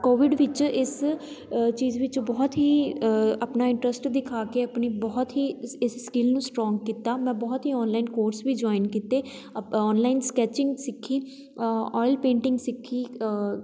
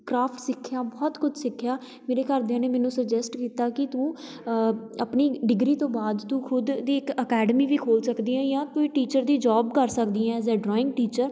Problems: background sounds at intervals, continuous background conversations